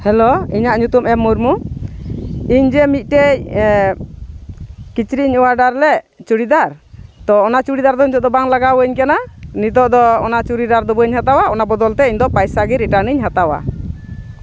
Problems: none marked